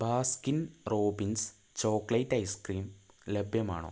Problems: low volume